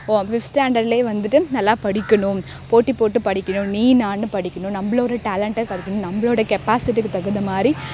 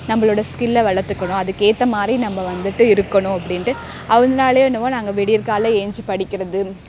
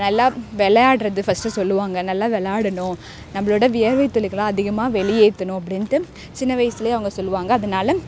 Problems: background sounds at intervals, background conversations at intervals